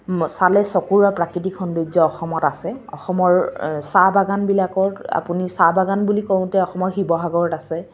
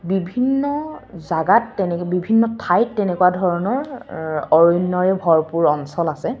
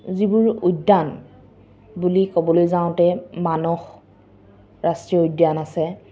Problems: constant background noise